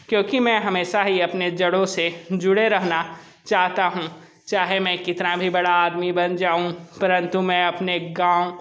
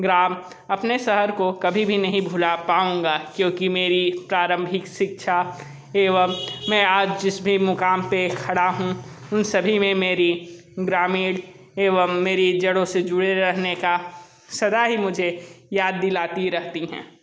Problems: background sounds at intervals